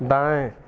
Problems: constant background noise